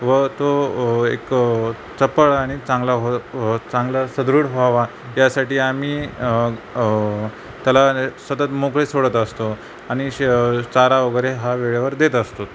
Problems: none marked